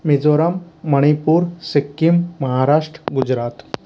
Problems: constant background noise